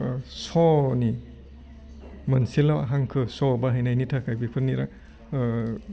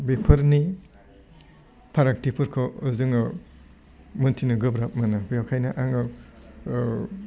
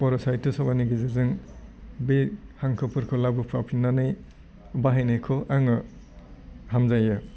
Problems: constant background noise